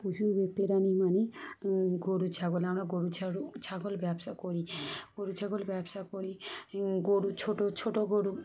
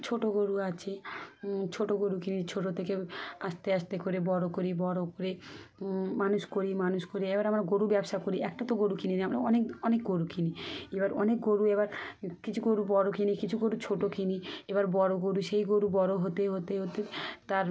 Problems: background sounds at intervals, background conversations at intervals